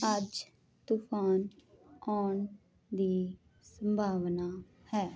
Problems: none marked